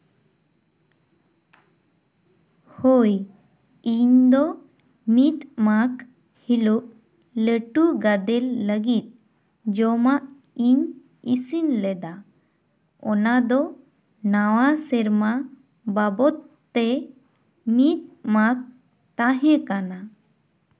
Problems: echo